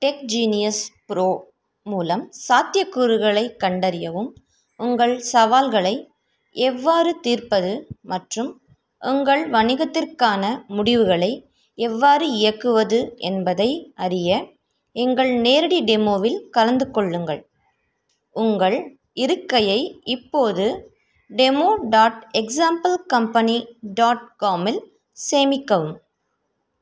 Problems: none marked